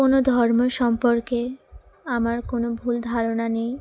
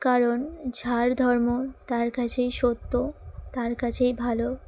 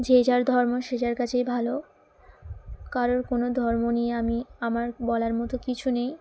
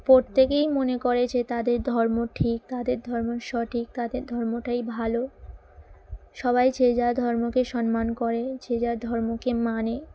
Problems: constant background noise